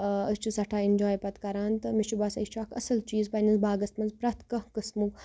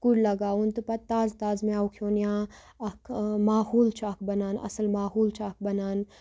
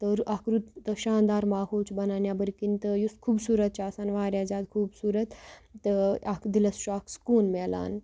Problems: none marked